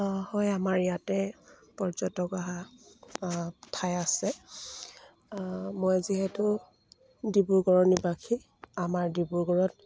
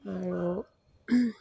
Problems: constant background noise